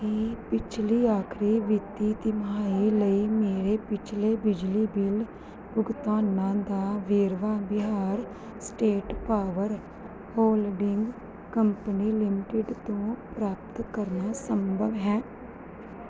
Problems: background sounds at intervals